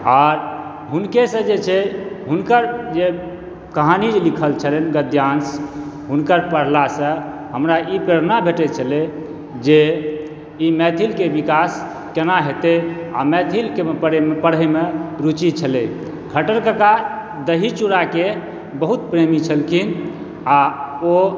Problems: background sounds at intervals